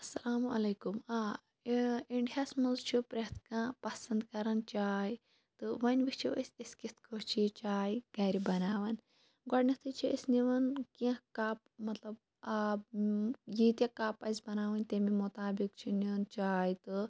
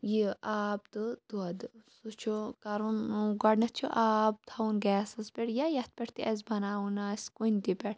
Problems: none marked